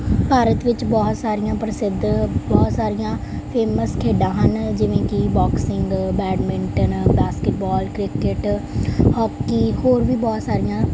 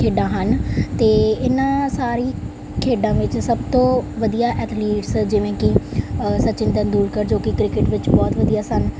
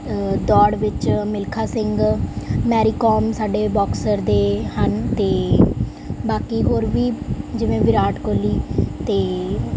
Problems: background sounds at intervals